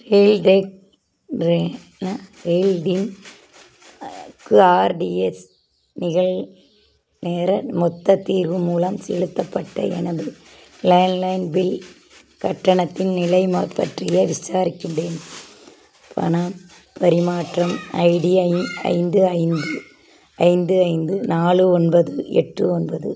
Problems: background sounds at intervals